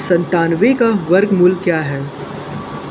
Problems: constant background noise, echo